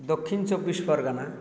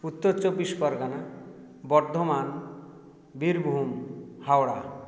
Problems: none marked